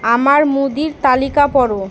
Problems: constant background noise